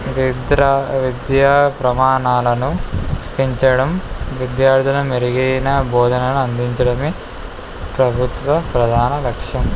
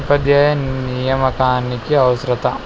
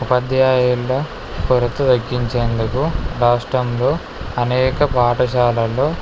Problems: none marked